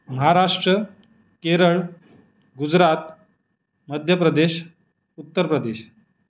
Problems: background sounds at intervals